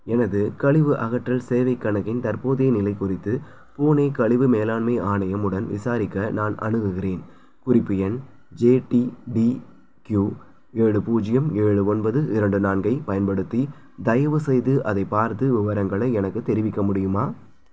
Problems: background sounds at intervals